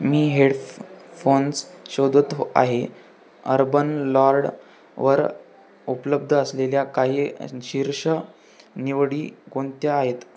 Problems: constant background noise, continuous background conversations